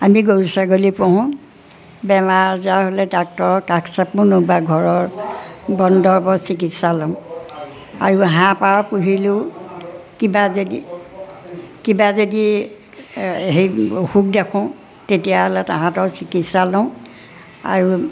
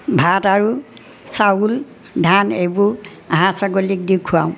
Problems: none marked